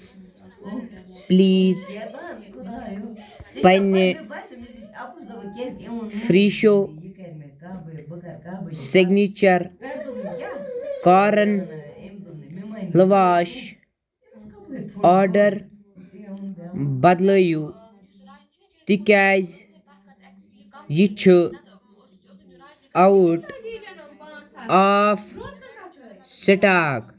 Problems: none marked